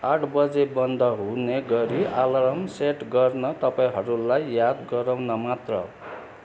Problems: none marked